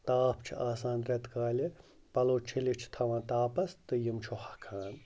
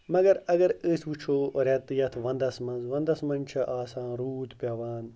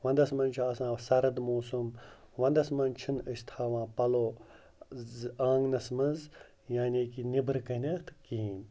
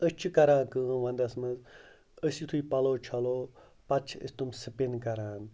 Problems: none marked